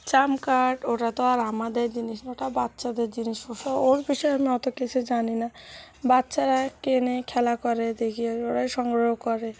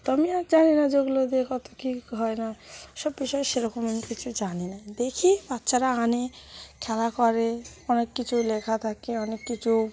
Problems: constant background noise